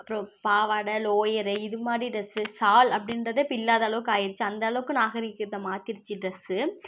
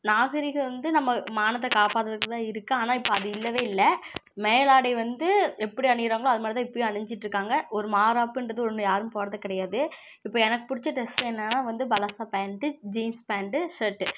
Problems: constant background noise